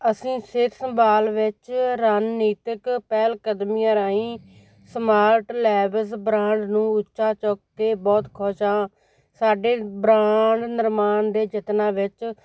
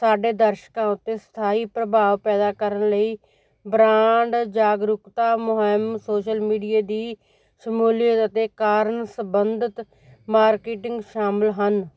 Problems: background sounds at intervals